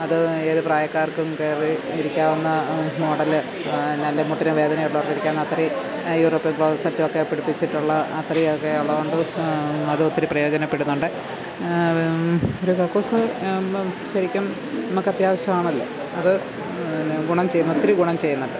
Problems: none marked